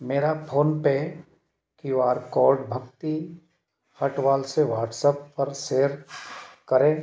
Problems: none marked